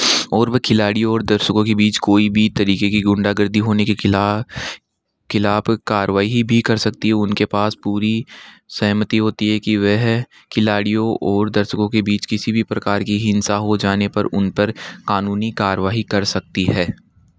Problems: background sounds at intervals